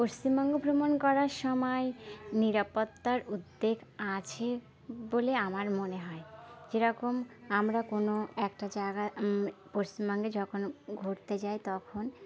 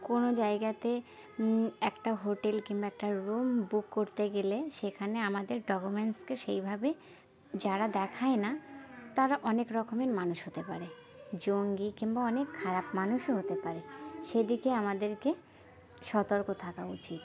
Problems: constant background noise, background conversations at intervals